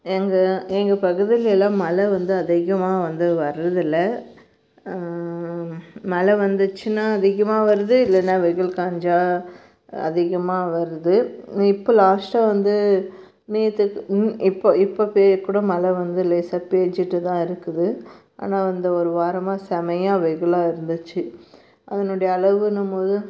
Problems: none marked